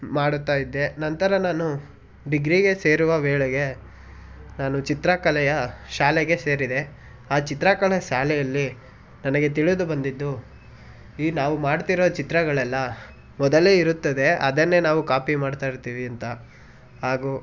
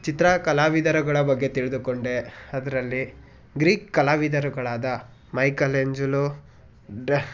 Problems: background conversations at intervals